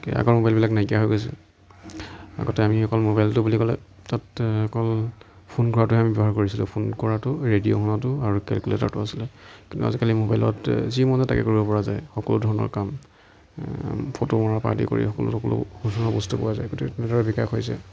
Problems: background conversations at intervals